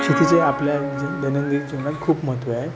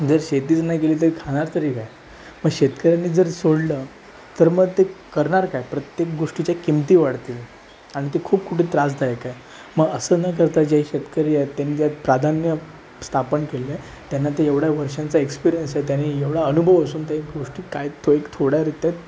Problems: constant background noise